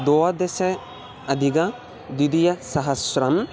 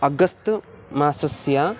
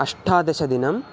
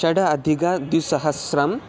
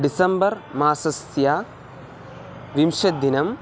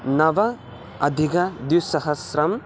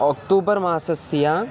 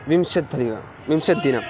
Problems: constant background noise